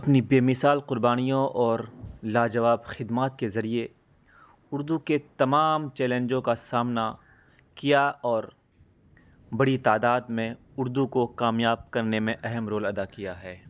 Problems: none marked